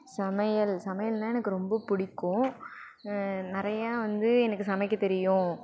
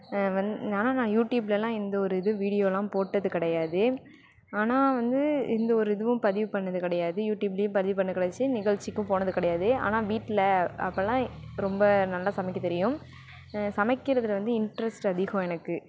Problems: background sounds at intervals